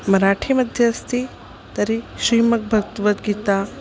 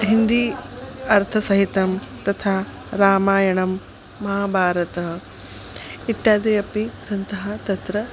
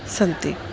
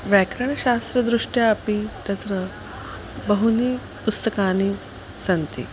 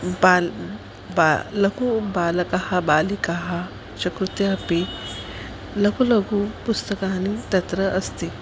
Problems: none marked